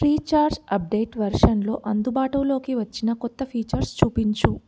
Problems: background sounds at intervals